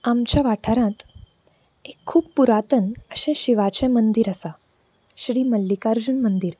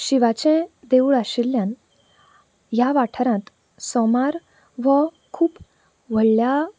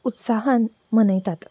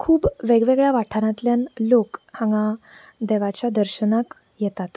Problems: none marked